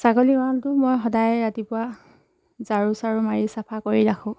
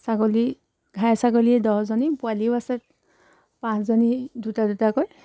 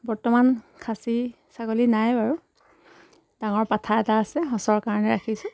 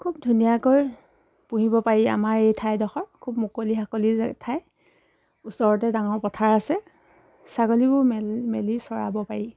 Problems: background sounds at intervals